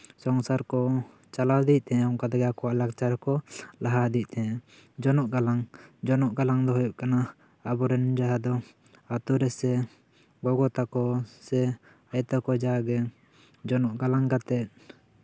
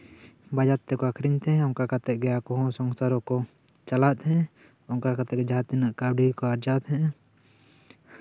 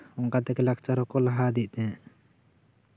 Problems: none marked